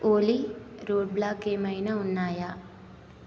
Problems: constant background noise